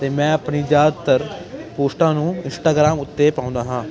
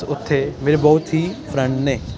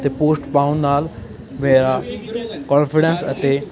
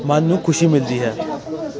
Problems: constant background noise